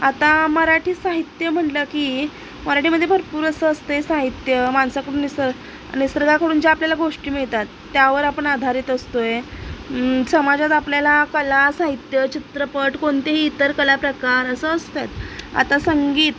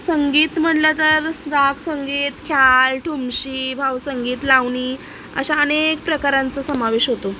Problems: none marked